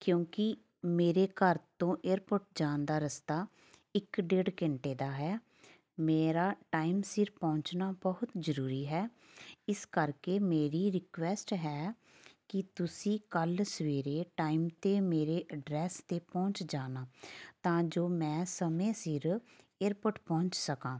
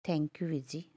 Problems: none marked